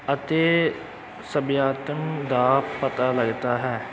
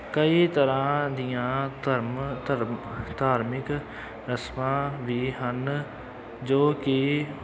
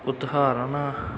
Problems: background sounds at intervals, continuous background conversations